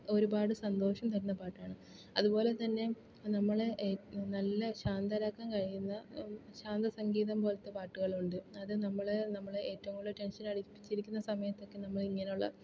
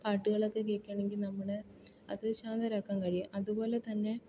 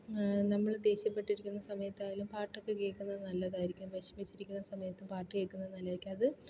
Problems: low volume